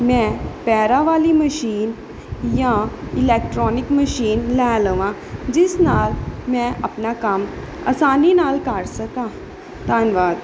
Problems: none marked